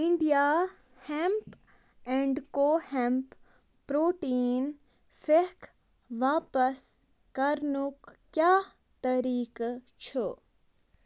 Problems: none marked